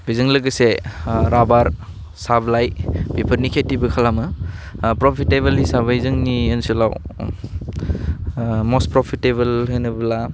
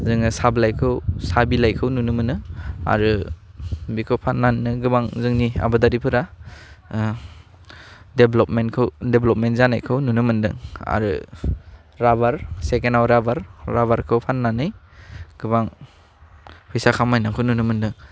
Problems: constant background noise